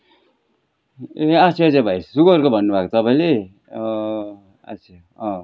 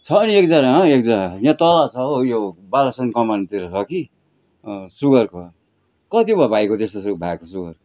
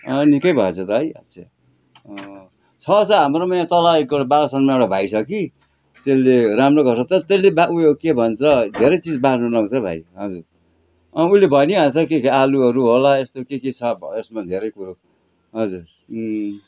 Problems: background sounds at intervals